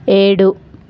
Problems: constant background noise